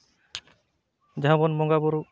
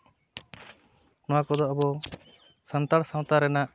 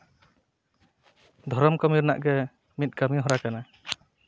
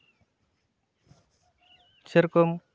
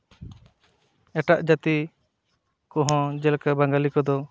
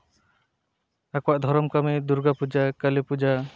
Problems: none marked